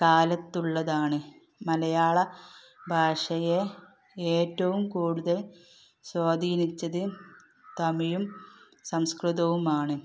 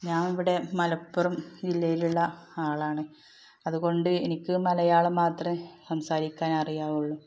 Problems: background sounds at intervals